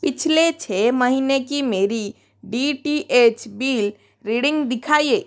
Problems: none marked